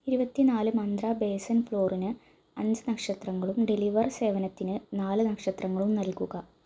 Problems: none marked